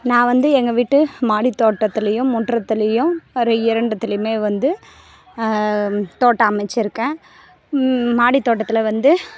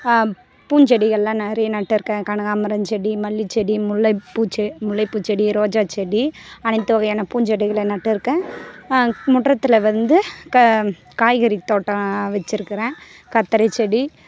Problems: constant background noise